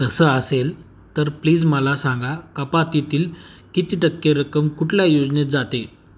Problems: background sounds at intervals